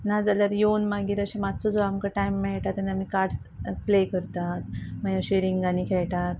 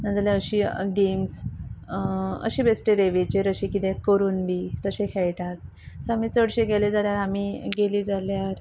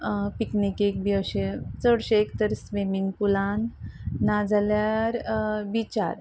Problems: constant background noise